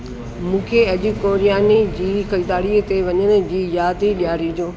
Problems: constant background noise, echo